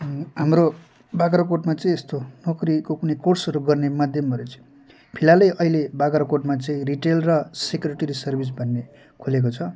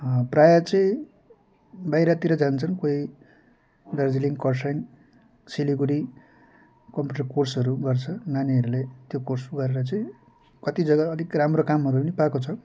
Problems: background sounds at intervals